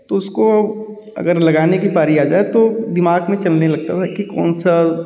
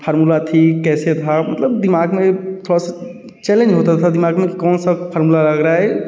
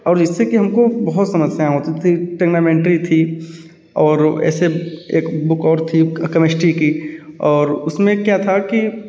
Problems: none marked